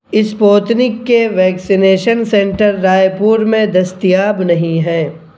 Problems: constant background noise